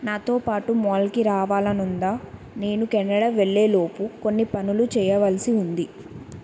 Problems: constant background noise